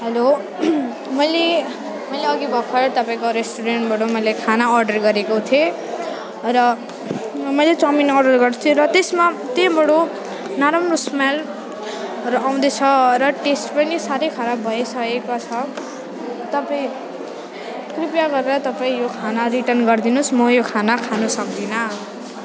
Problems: constant background noise, continuous background conversations